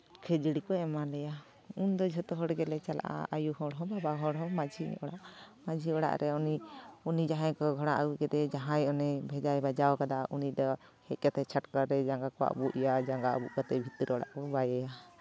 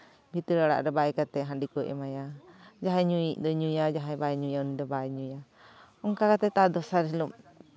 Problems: none marked